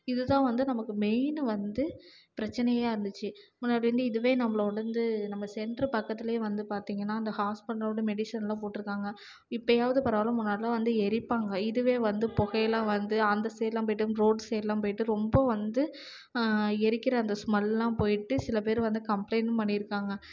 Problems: low volume